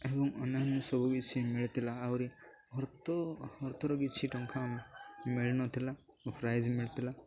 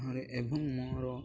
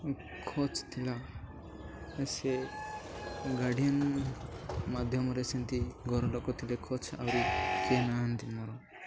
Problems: background sounds at intervals, low volume